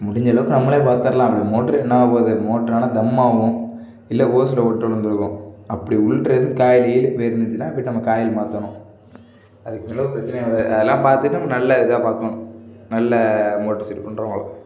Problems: none marked